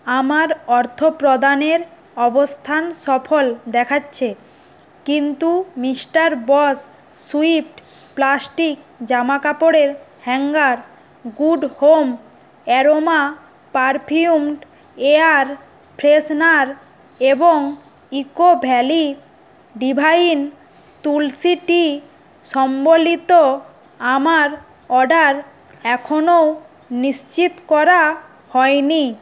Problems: none marked